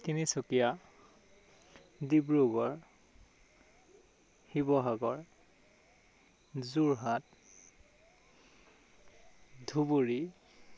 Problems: none marked